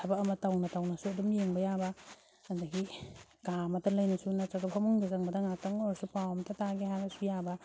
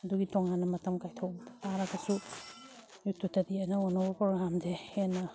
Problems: none marked